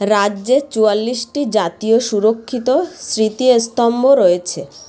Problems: constant background noise, background conversations at intervals